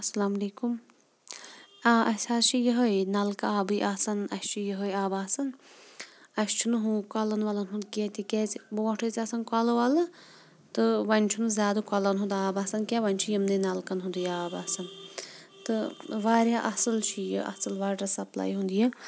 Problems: background sounds at intervals